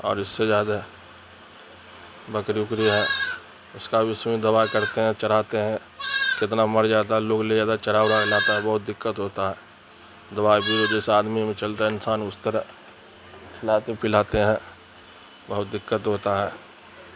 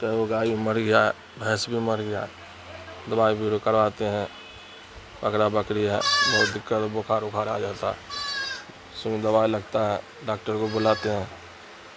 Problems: constant background noise